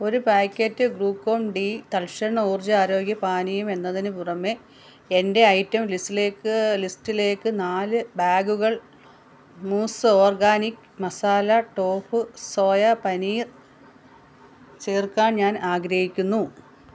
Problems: none marked